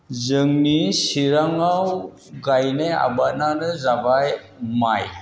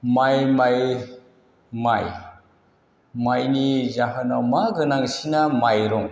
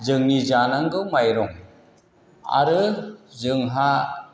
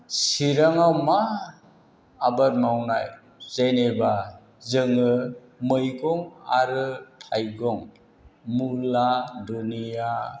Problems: constant background noise